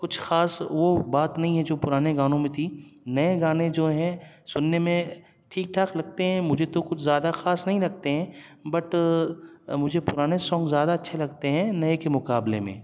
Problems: none marked